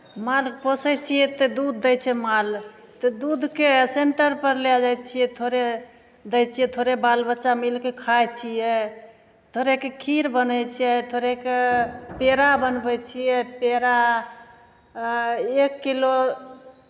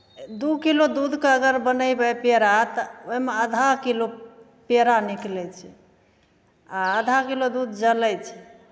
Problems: none marked